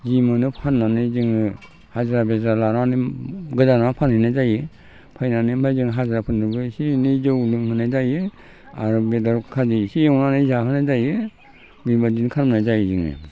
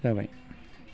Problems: constant background noise